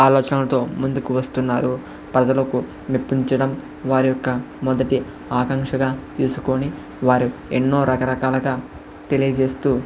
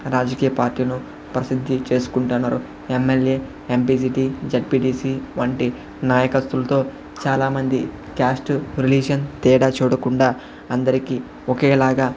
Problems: constant background noise, background conversations at intervals